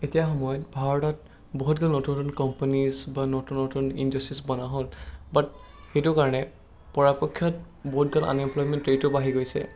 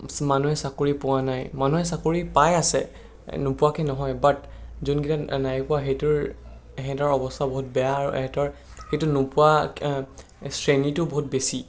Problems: none marked